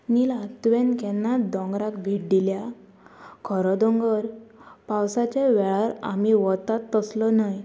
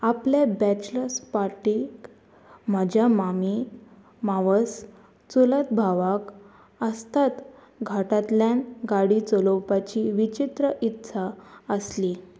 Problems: constant background noise